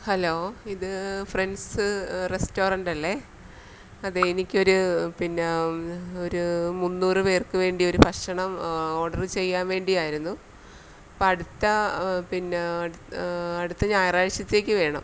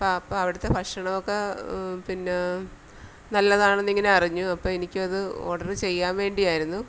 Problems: none marked